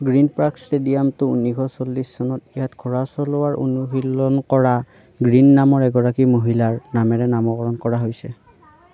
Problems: background conversations at intervals